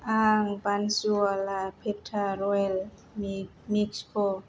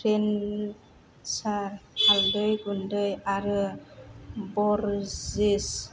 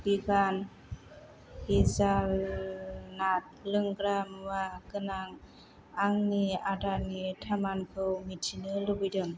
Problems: low volume